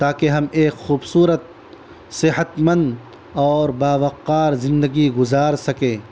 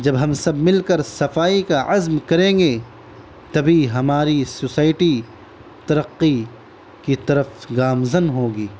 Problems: constant background noise